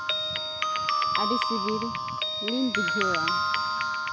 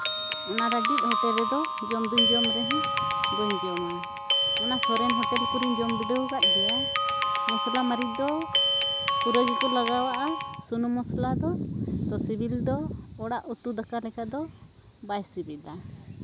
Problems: constant background noise